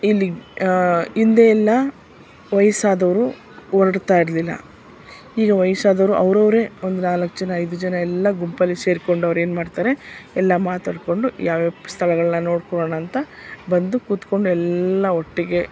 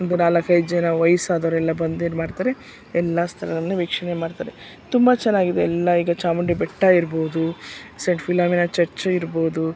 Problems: none marked